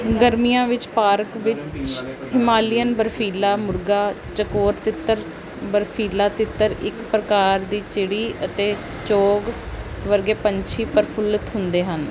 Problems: constant background noise